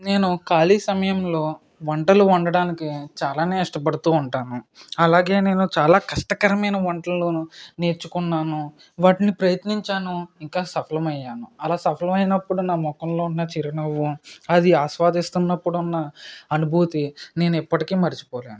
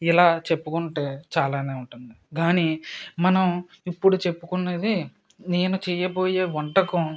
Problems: none marked